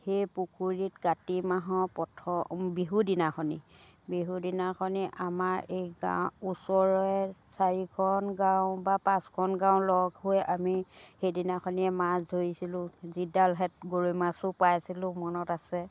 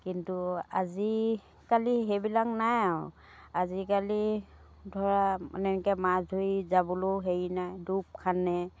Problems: none marked